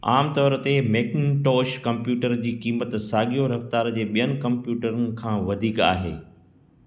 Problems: background sounds at intervals, echo